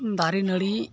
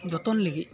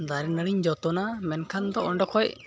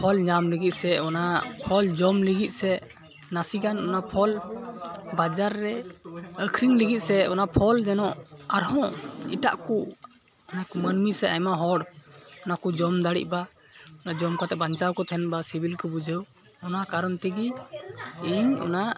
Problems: constant background noise, continuous background conversations